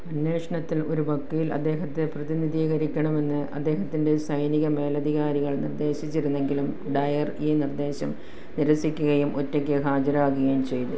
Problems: background sounds at intervals